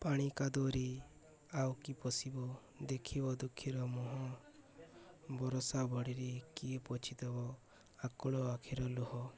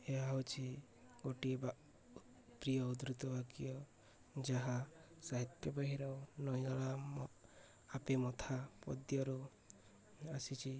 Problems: none marked